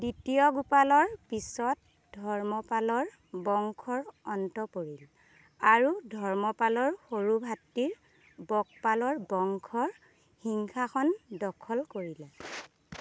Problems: none marked